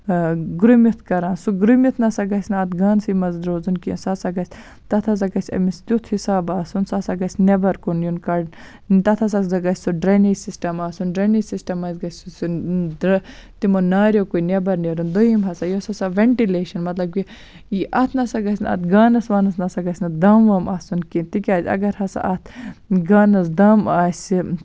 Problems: none marked